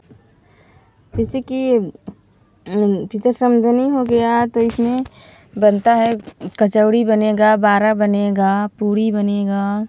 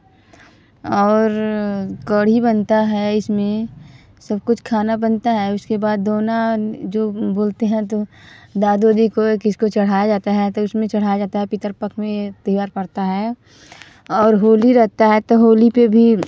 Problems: background sounds at intervals